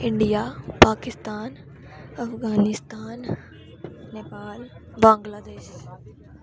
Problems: constant background noise